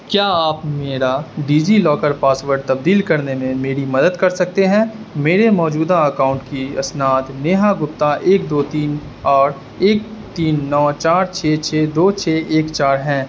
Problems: constant background noise